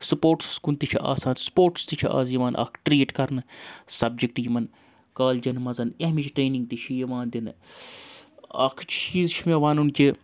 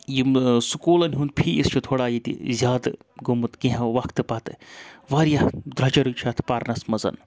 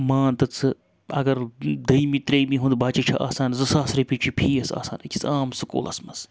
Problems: constant background noise